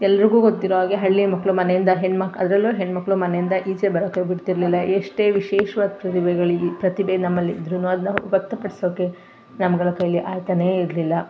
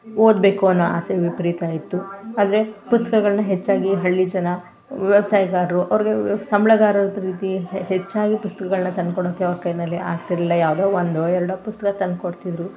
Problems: none marked